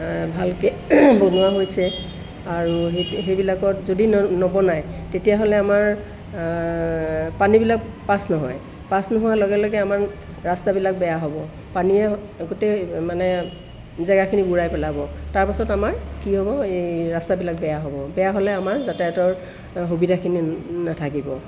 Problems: constant background noise